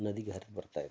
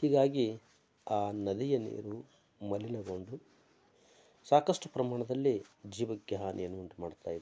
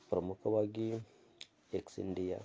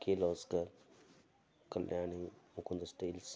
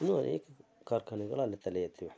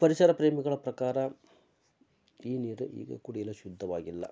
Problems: none marked